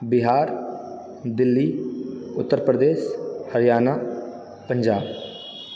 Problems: background sounds at intervals